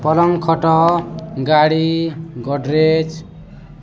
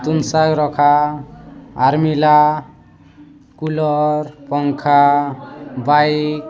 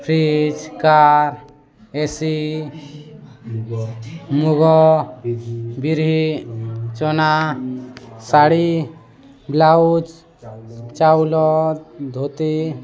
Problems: constant background noise, continuous background conversations